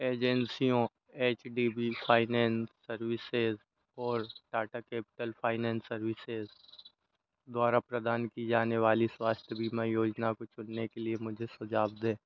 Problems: constant background noise